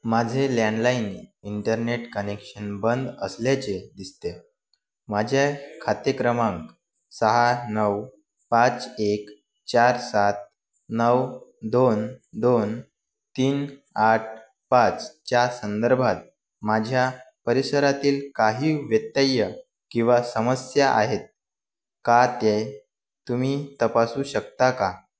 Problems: background sounds at intervals, background conversations at intervals